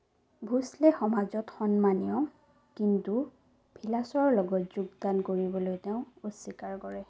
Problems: none marked